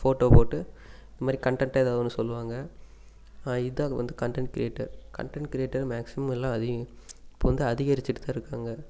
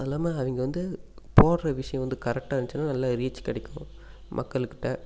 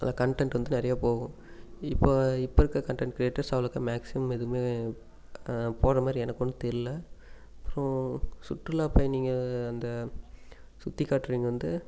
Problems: constant background noise